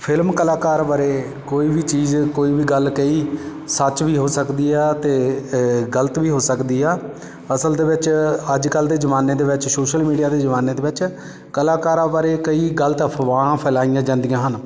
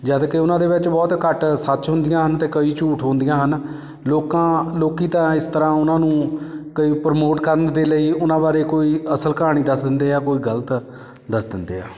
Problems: background sounds at intervals